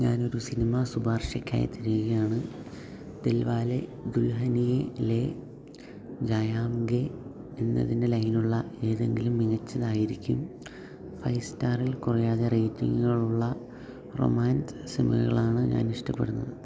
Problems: low volume